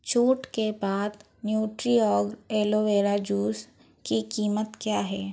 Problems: none marked